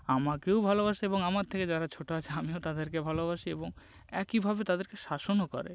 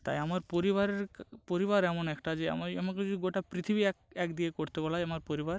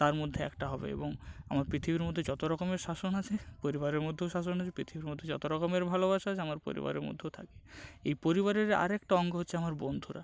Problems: none marked